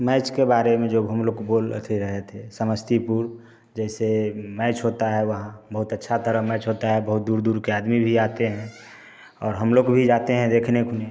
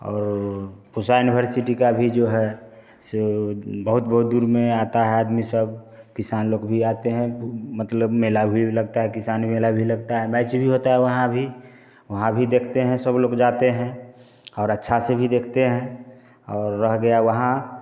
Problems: constant background noise